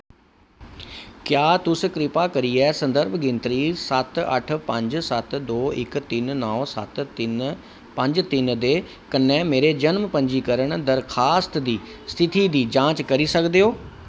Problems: none marked